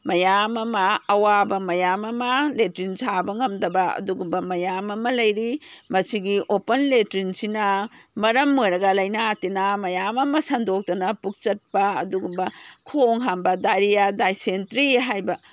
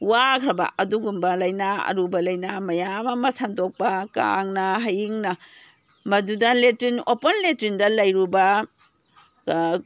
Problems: none marked